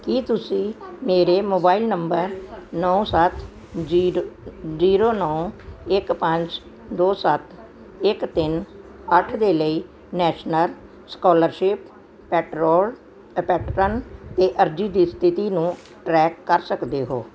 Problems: background sounds at intervals